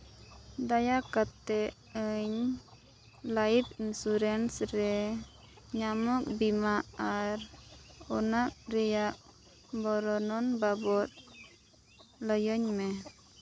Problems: none marked